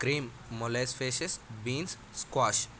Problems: constant background noise